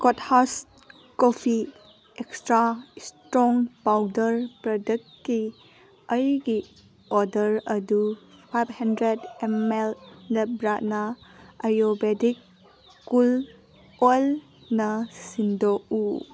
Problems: constant background noise